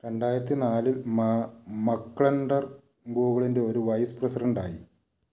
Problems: none marked